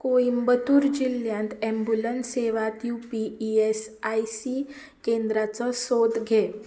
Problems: background sounds at intervals